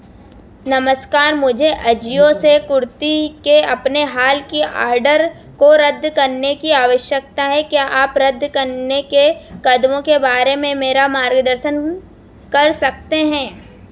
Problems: constant background noise